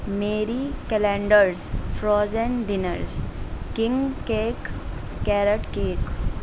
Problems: constant background noise